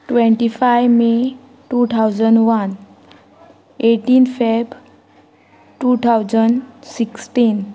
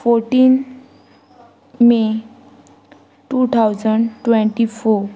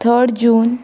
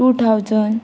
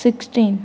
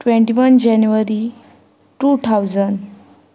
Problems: constant background noise